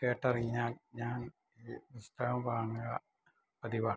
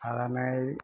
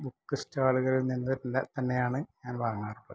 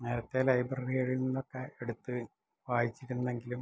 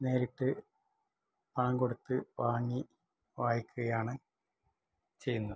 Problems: low volume